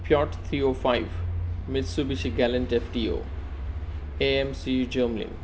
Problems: none marked